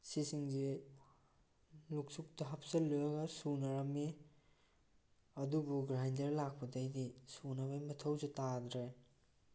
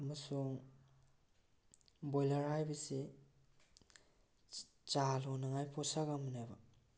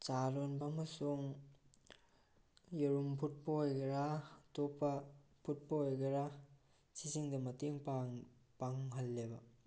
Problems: low volume